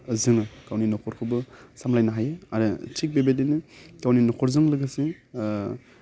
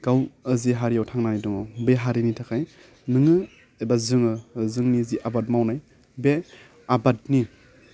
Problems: none marked